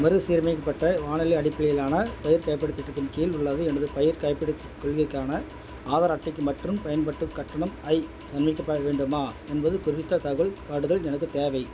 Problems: constant background noise